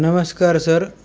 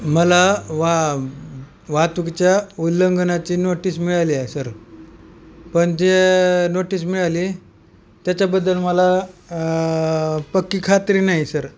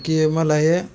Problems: none marked